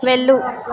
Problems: continuous background conversations